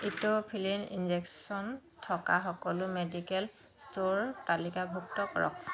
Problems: constant background noise